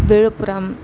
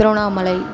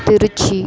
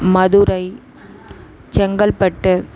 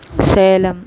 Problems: constant background noise